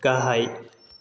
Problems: constant background noise